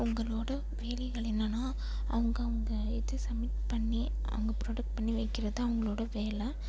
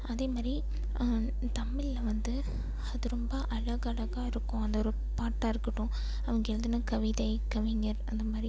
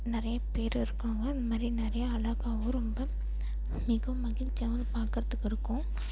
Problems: low volume